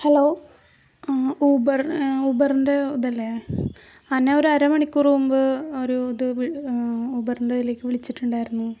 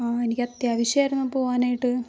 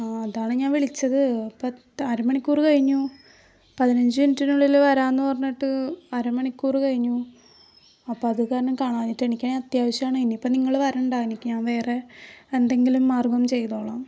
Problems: low volume